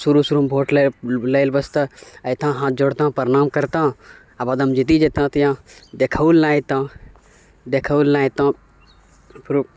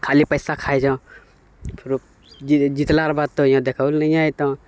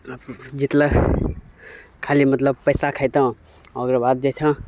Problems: none marked